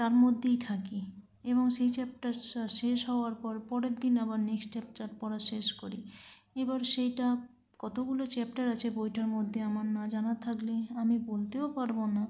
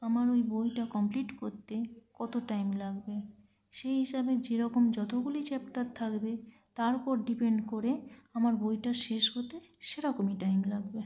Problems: none marked